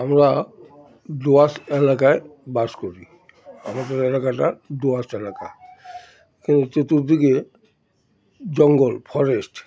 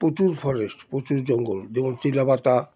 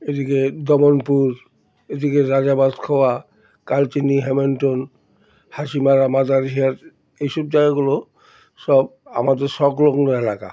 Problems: background sounds at intervals